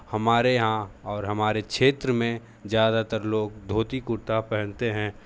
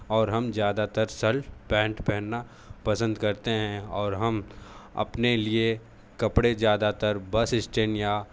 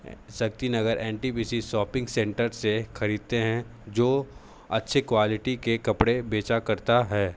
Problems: none marked